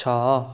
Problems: none marked